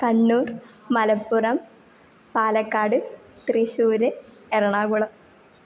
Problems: none marked